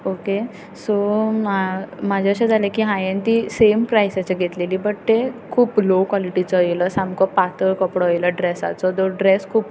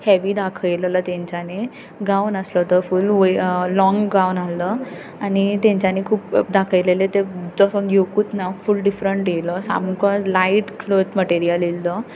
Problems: none marked